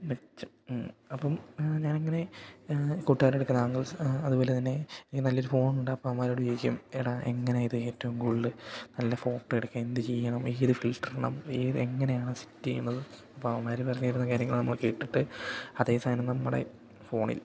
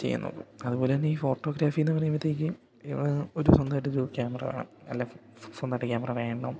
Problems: none marked